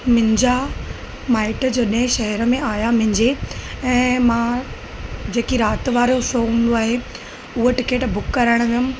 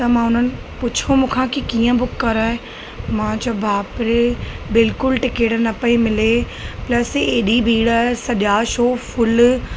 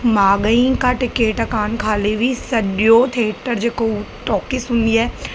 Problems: constant background noise